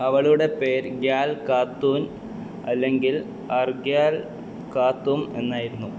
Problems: constant background noise